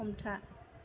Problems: constant background noise